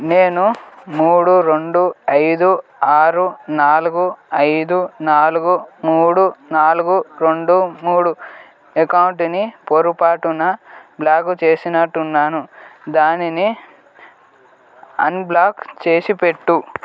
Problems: constant background noise